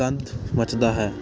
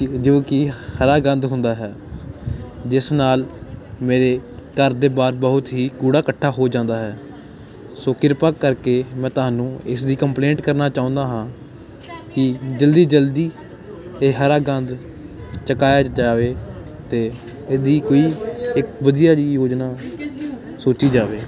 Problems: constant background noise